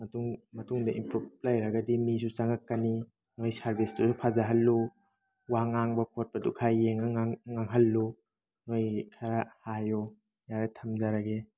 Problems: background sounds at intervals